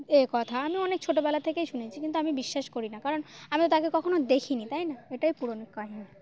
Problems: constant background noise, background conversations at intervals